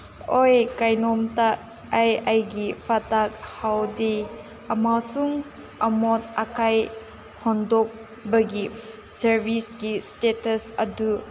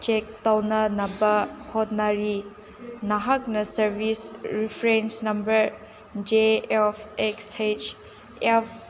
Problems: constant background noise, background conversations at intervals